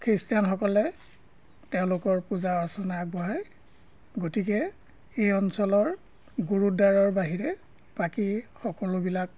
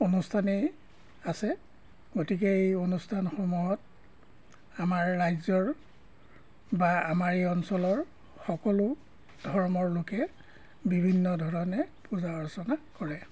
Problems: none marked